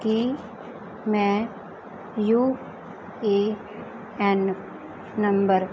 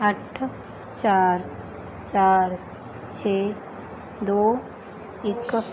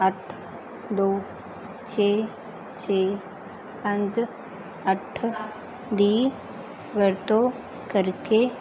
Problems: constant background noise